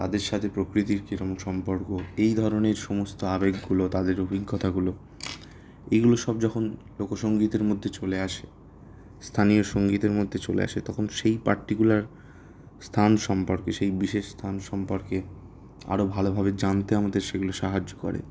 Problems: background sounds at intervals